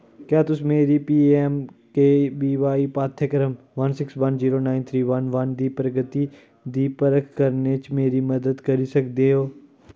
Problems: none marked